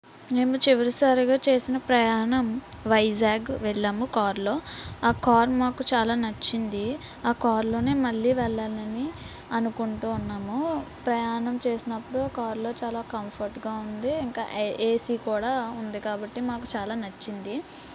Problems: constant background noise, background conversations at intervals